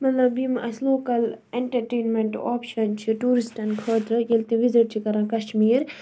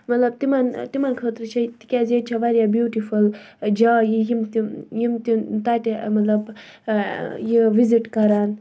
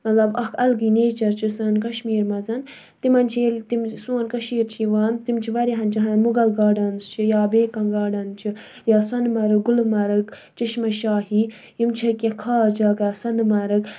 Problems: background sounds at intervals